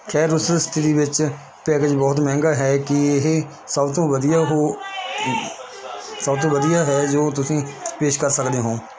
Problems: constant background noise, continuous background conversations